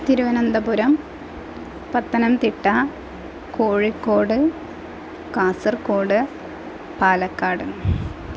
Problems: constant background noise